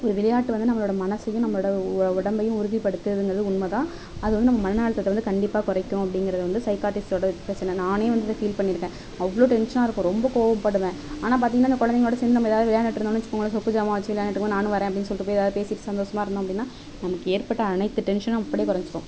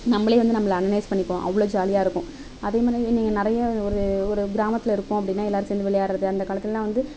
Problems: none marked